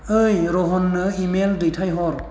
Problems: none marked